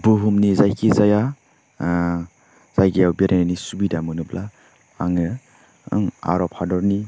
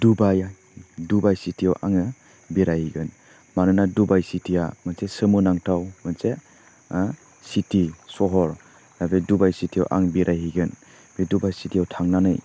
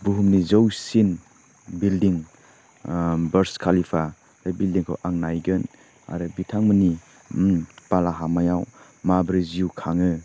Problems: none marked